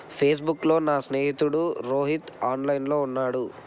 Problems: constant background noise